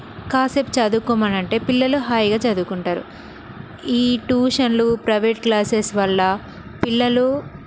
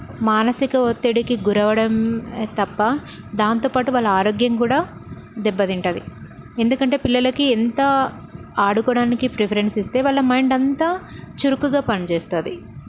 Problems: constant background noise